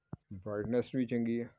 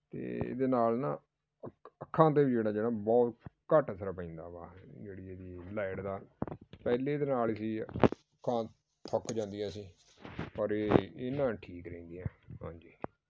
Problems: background sounds at intervals, background conversations at intervals